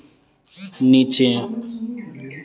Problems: constant background noise